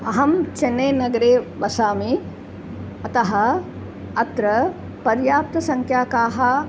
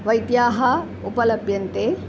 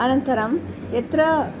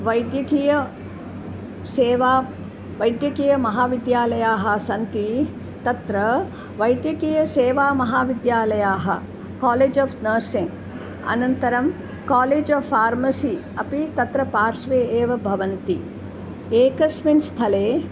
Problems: constant background noise